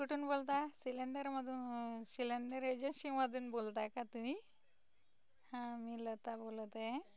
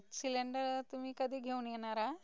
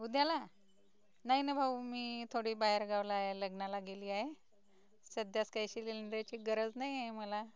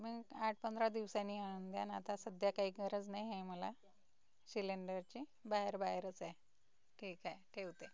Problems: none marked